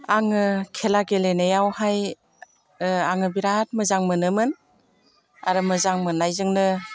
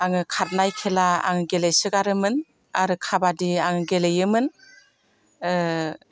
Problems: none marked